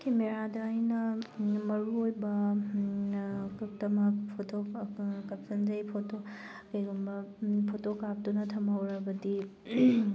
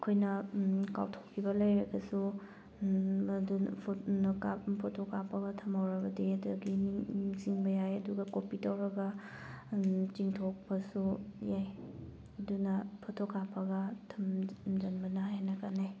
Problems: none marked